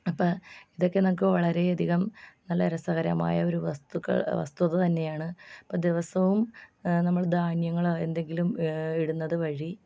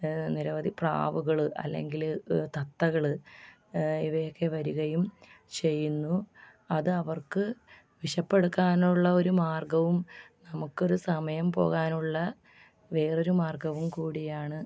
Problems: low volume